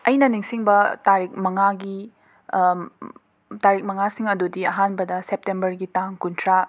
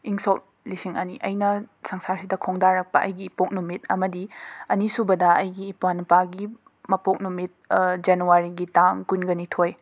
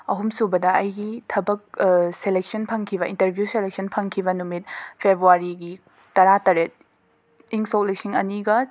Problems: none marked